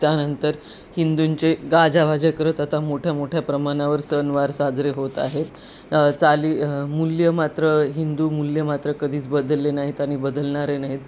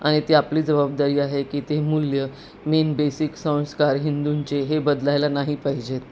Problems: constant background noise